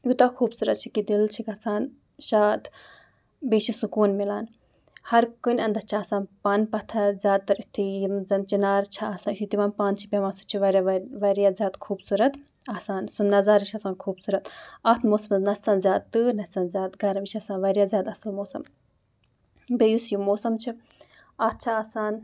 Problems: background sounds at intervals